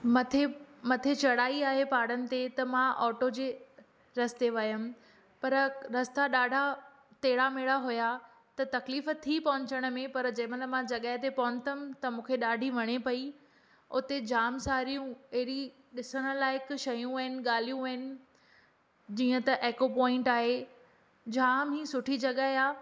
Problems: none marked